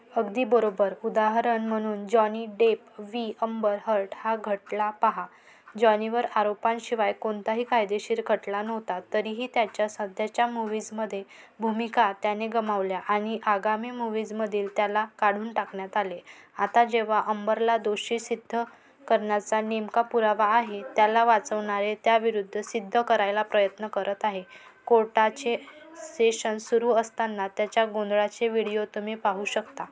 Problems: constant background noise, continuous background conversations